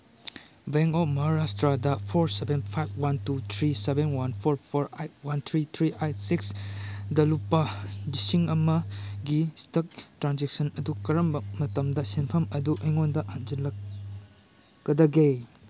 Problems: background sounds at intervals